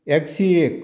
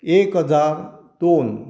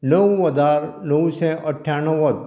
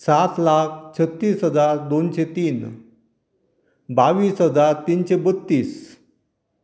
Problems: none marked